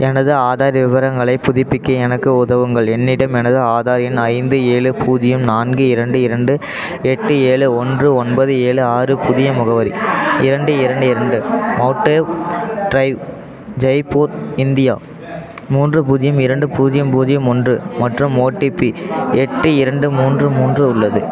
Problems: continuous background conversations